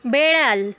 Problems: constant background noise